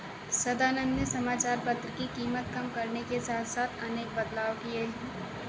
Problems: constant background noise